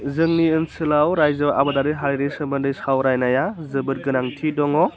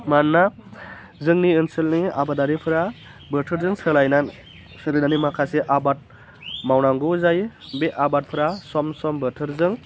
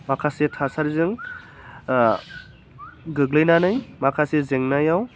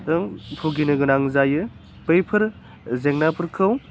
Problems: constant background noise